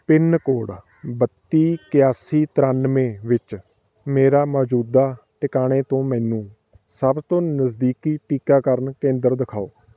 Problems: background sounds at intervals, background conversations at intervals